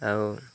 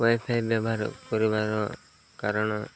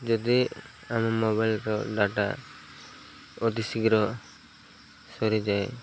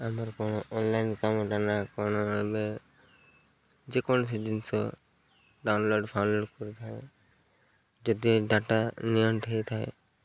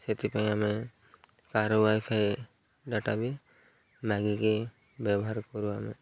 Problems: none marked